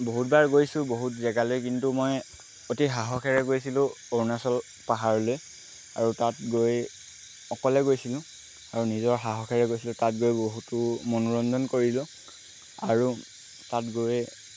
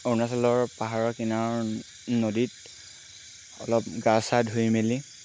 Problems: constant background noise